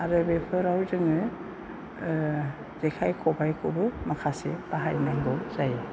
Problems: constant background noise